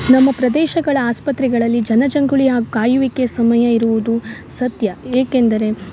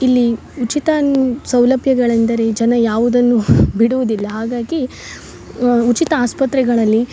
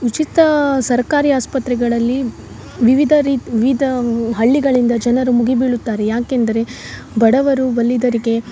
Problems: none marked